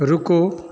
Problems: constant background noise, echo